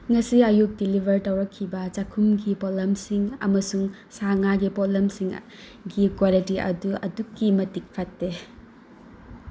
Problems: background sounds at intervals